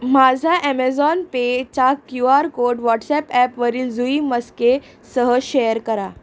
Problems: constant background noise